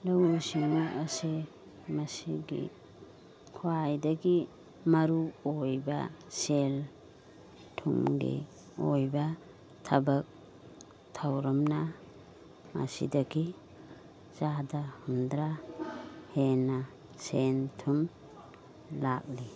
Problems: background sounds at intervals